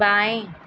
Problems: constant background noise